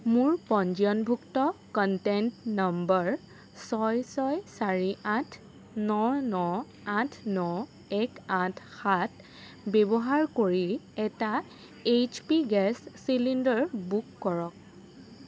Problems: constant background noise